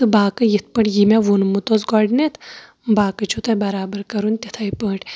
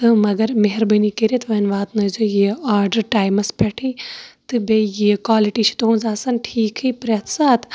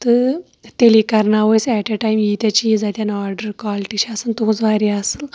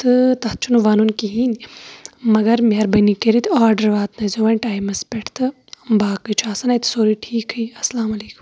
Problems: constant background noise